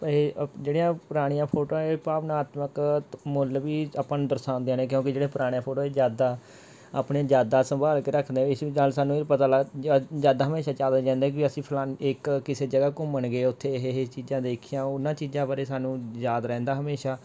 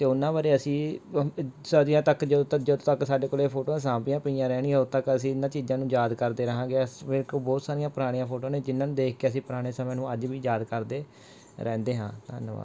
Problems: none marked